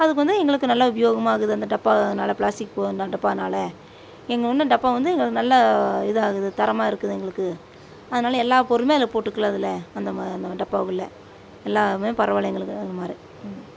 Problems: constant background noise